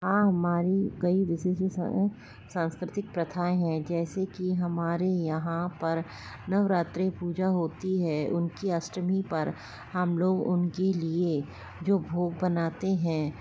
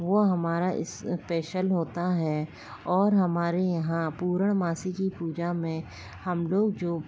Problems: none marked